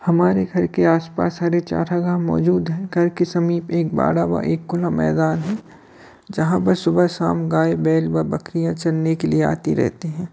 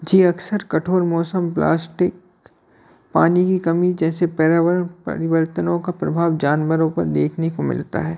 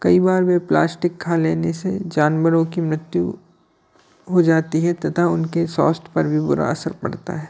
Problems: constant background noise, background conversations at intervals